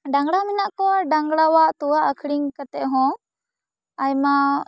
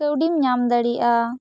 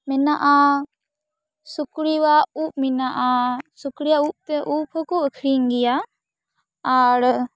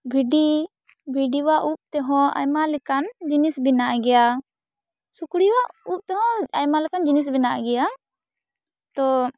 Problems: none marked